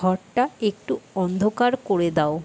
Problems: constant background noise